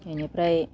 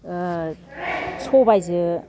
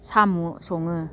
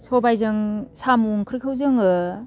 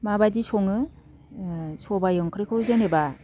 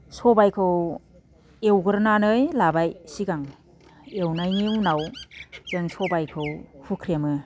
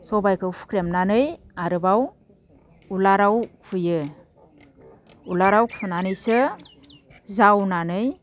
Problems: low volume